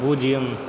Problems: constant background noise